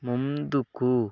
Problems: none marked